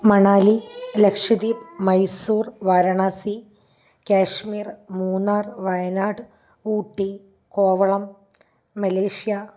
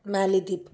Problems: none marked